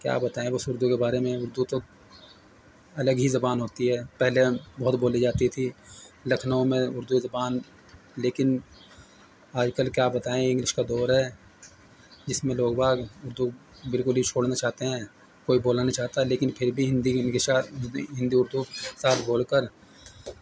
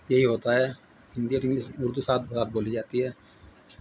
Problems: constant background noise